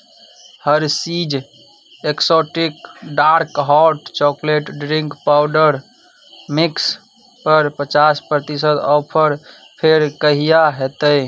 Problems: none marked